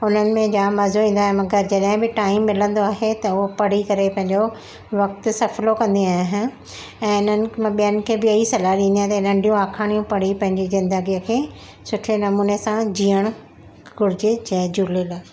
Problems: constant background noise